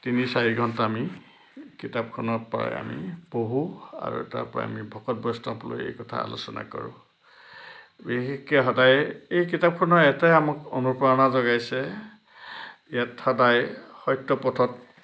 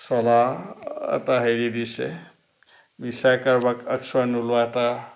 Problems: background sounds at intervals